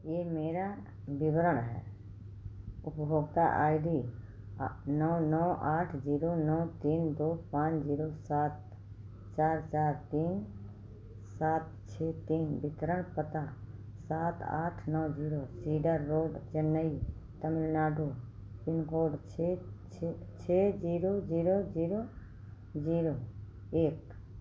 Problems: low volume